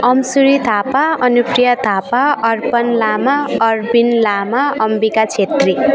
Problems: continuous background conversations